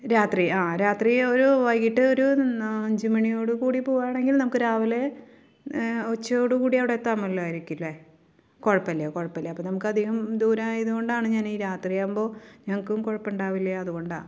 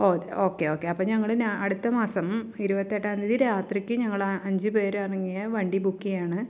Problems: none marked